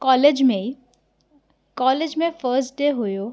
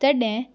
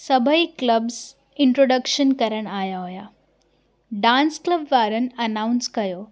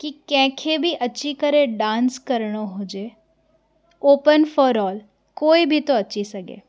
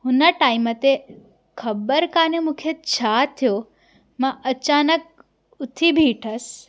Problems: none marked